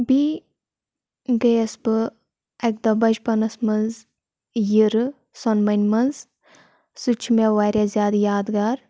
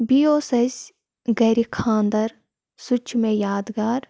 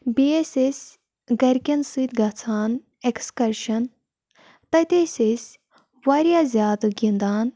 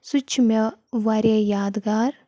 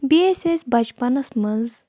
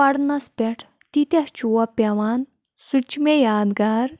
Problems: constant background noise